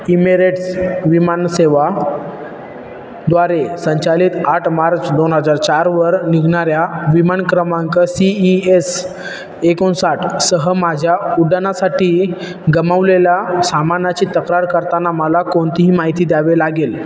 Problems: constant background noise